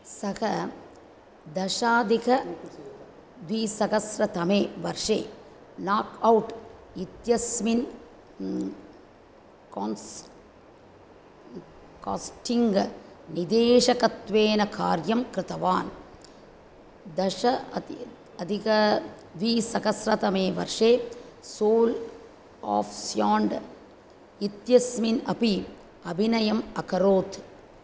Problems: none marked